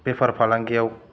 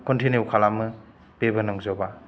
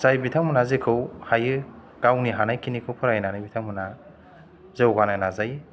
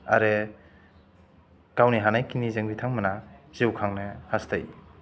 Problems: low volume